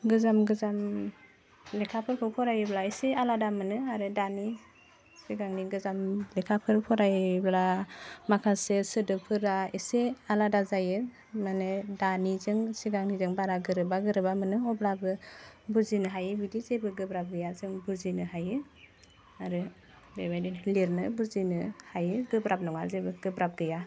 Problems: constant background noise